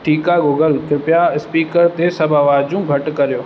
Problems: constant background noise